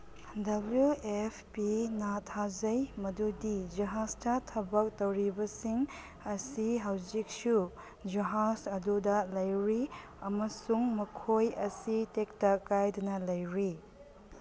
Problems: background sounds at intervals